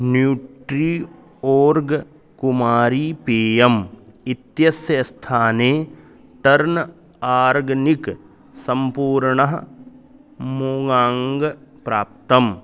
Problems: constant background noise